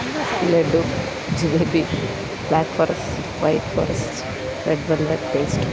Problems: constant background noise